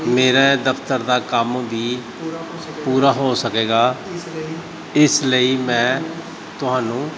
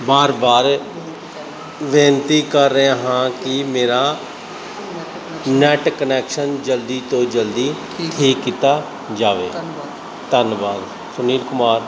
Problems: none marked